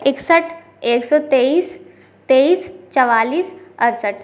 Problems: constant background noise, background conversations at intervals